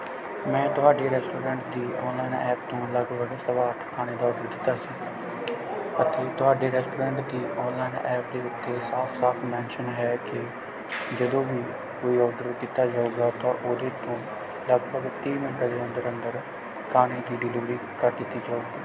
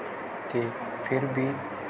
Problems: constant background noise